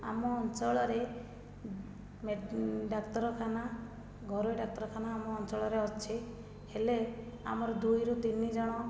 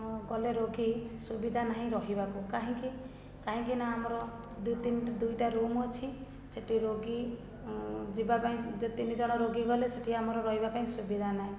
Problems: low volume